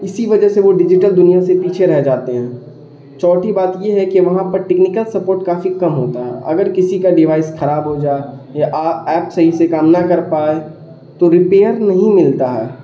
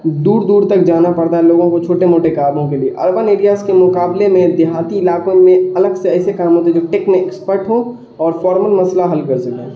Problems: background sounds at intervals, continuous background conversations